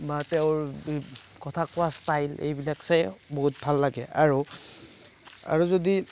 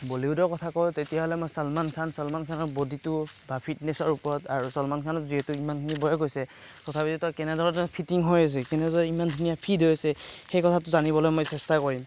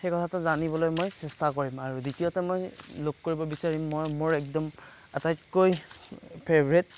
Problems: background sounds at intervals